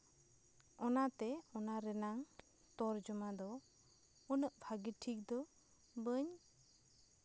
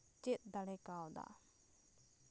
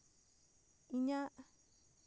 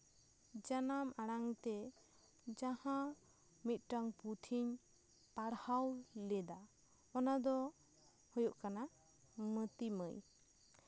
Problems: background sounds at intervals